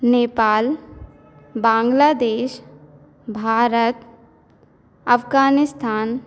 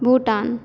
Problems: none marked